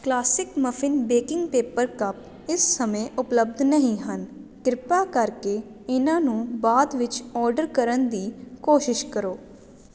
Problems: constant background noise